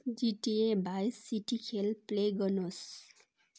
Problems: none marked